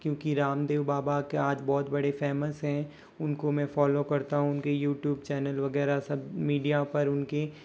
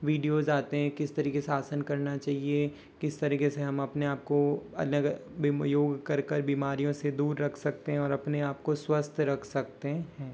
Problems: background sounds at intervals